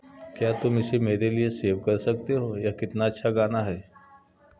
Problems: continuous background conversations